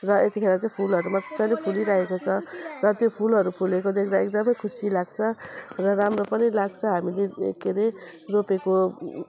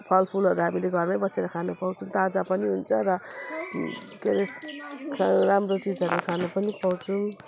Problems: background sounds at intervals